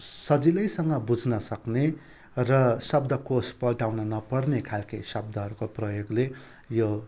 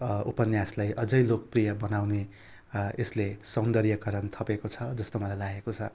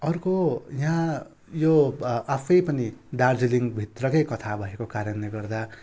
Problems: constant background noise